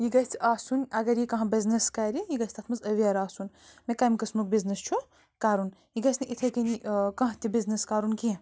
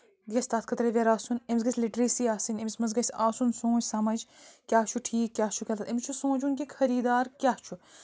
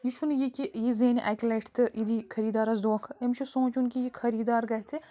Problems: background sounds at intervals, background conversations at intervals